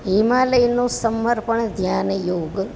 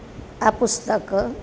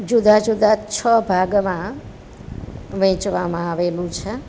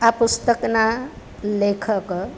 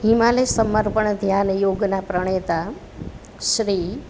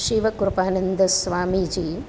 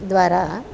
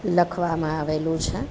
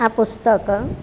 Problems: constant background noise